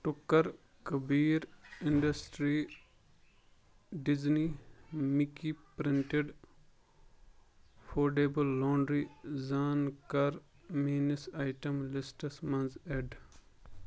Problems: none marked